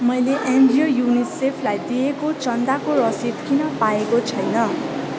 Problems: constant background noise